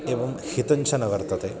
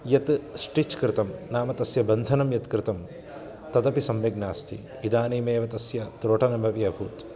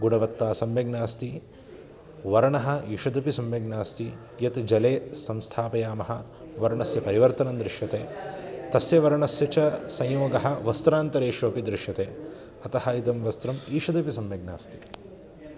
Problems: constant background noise